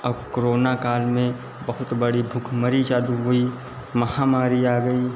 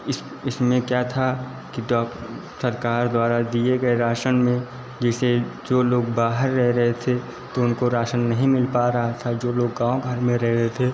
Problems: constant background noise, echo